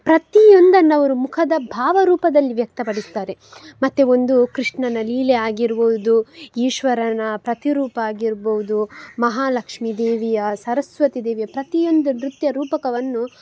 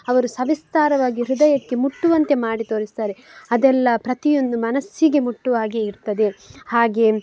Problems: background sounds at intervals